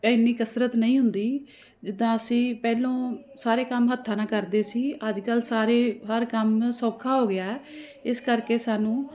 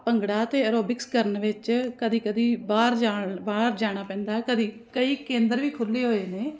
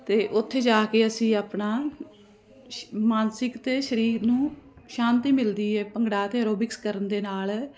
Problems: constant background noise